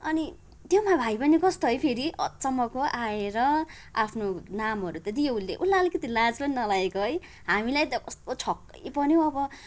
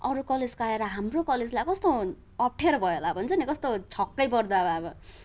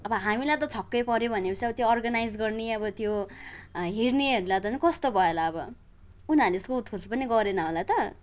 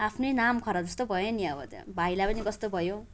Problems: background sounds at intervals